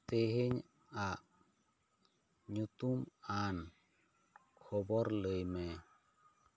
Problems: none marked